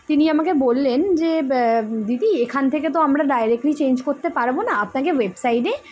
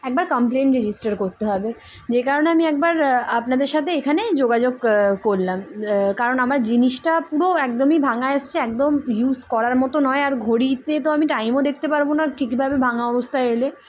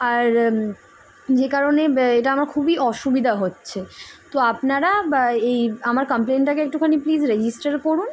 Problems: constant background noise